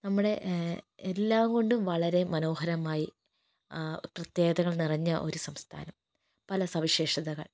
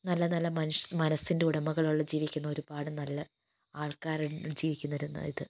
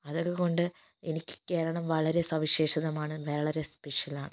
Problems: low volume